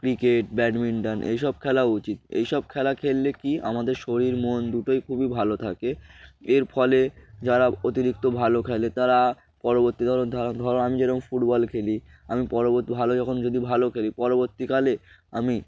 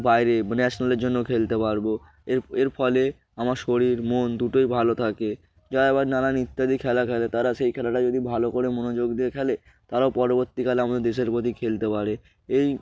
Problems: none marked